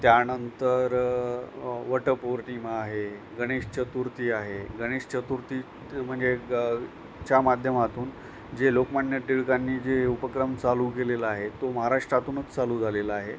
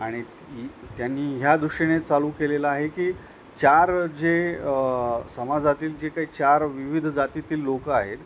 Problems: none marked